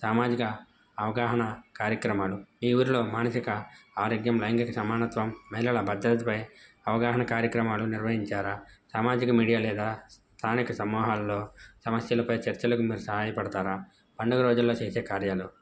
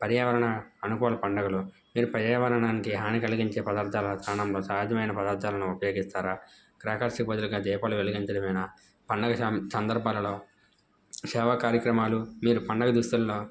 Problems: background sounds at intervals